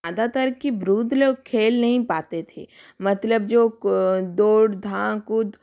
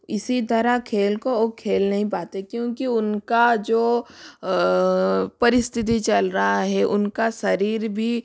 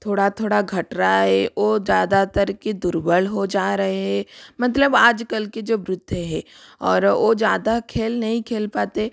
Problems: background sounds at intervals